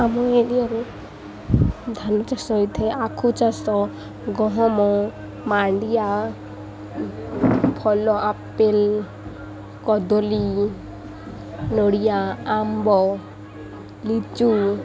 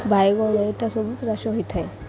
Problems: none marked